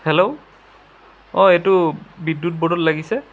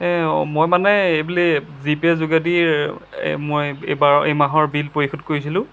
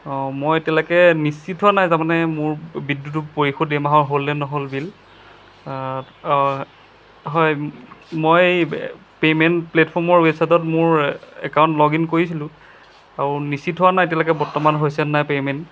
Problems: background sounds at intervals